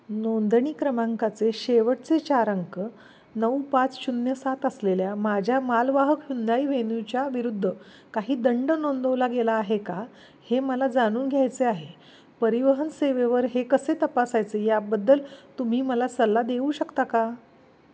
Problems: none marked